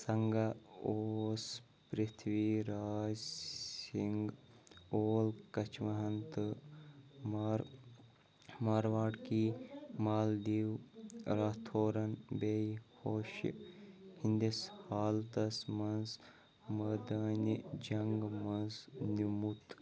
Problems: none marked